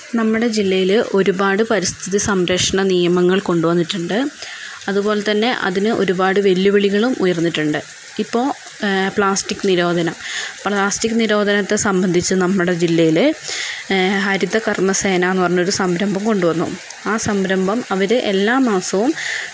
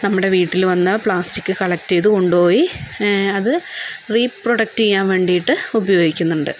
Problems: constant background noise